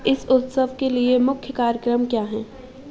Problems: constant background noise